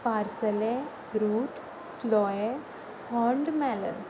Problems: constant background noise